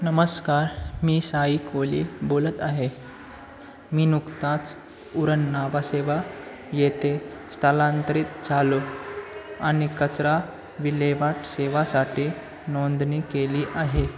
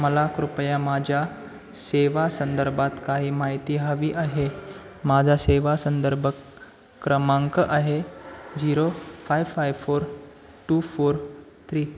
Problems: constant background noise, continuous background conversations